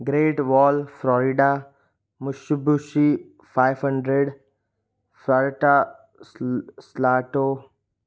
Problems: none marked